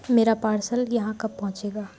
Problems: none marked